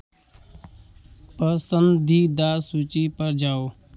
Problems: constant background noise